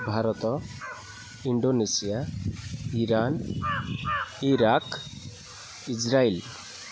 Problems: constant background noise, continuous background conversations